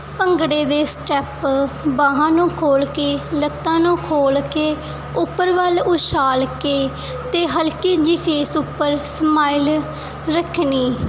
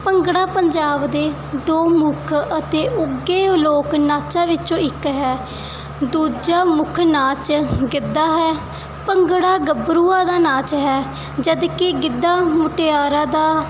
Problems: none marked